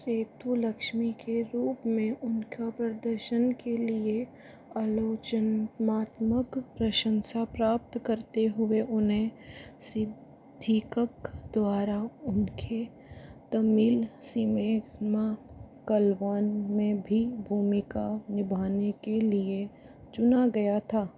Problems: low volume